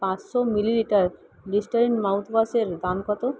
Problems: none marked